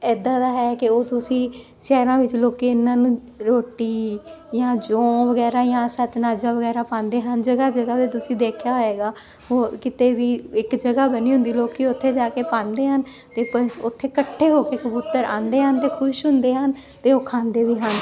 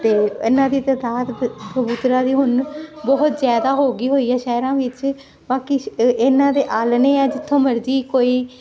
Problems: continuous background conversations